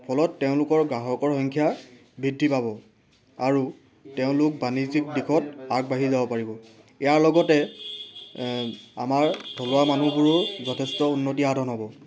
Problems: none marked